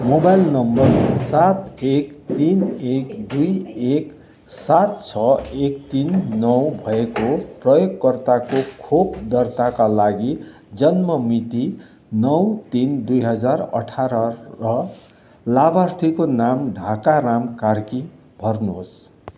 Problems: background sounds at intervals